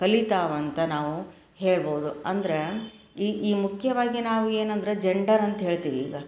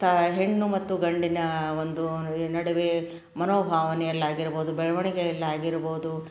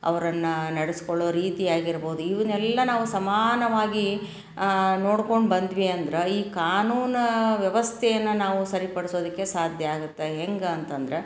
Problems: none marked